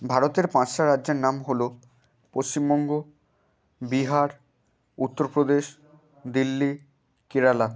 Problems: background sounds at intervals